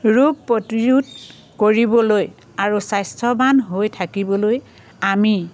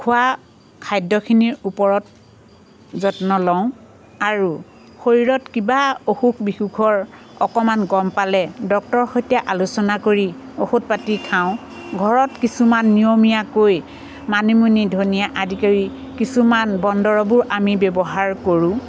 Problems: constant background noise